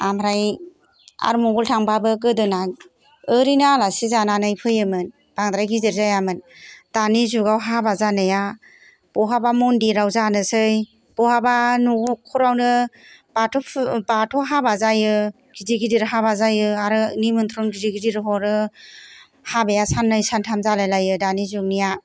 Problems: background sounds at intervals